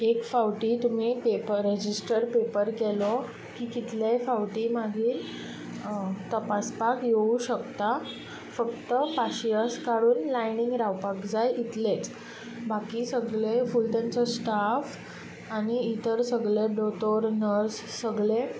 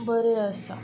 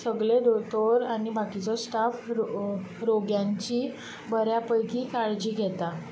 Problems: constant background noise